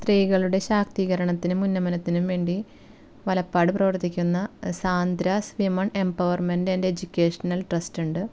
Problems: none marked